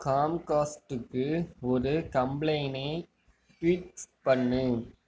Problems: low volume